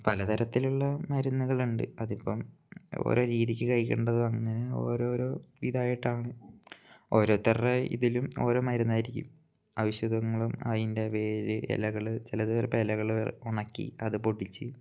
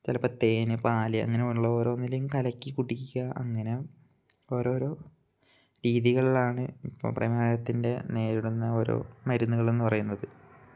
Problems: none marked